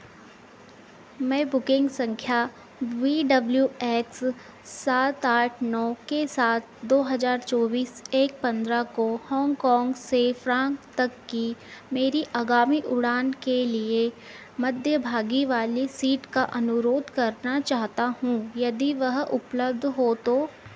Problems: constant background noise